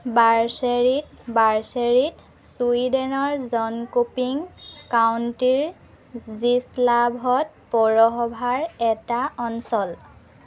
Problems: none marked